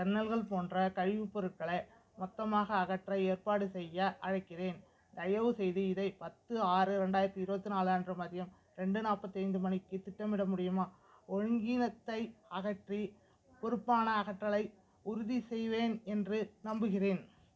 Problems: background sounds at intervals